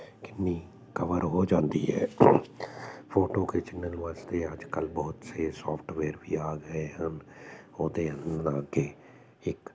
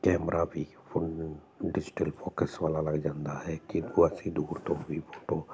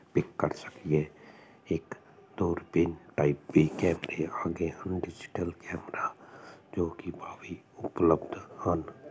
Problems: constant background noise